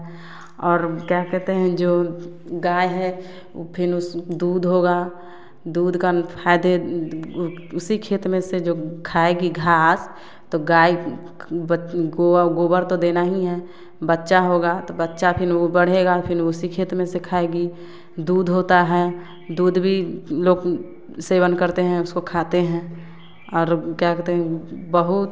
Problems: none marked